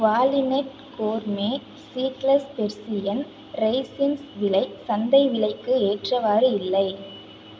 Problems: constant background noise